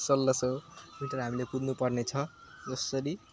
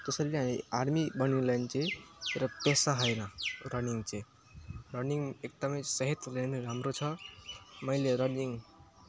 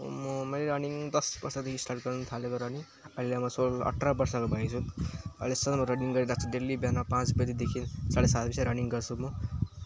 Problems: constant background noise